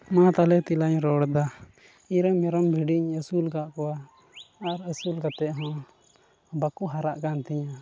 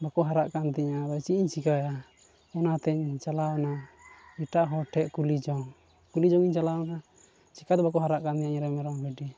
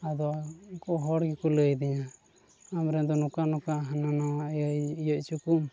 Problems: constant background noise, low volume